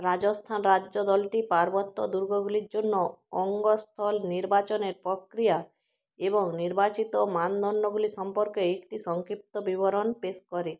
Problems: background sounds at intervals